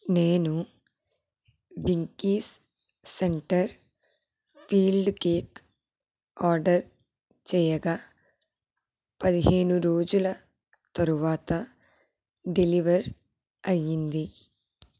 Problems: low volume